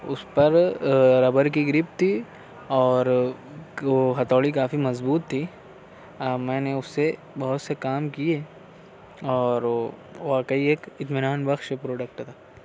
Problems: none marked